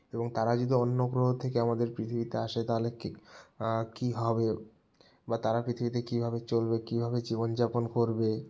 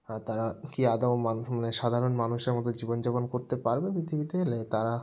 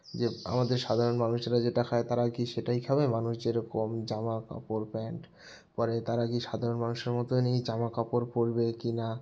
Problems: background sounds at intervals